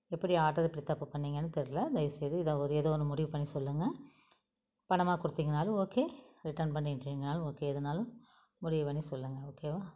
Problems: none marked